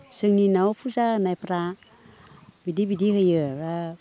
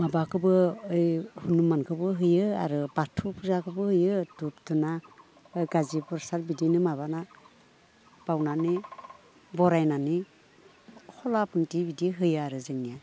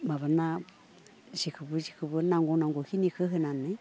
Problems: background conversations at intervals